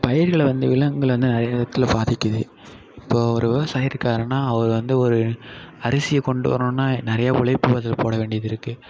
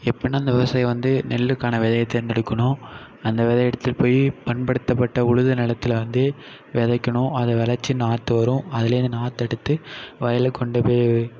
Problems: background sounds at intervals